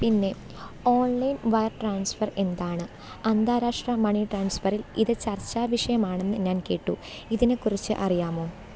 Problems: none marked